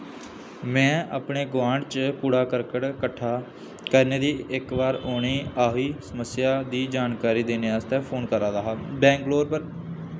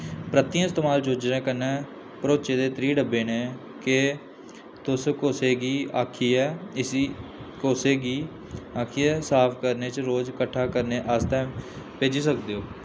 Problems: constant background noise